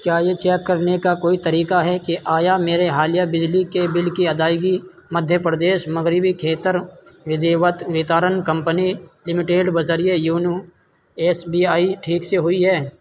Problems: constant background noise